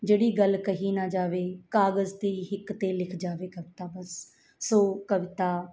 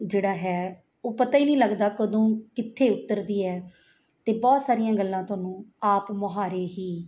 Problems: none marked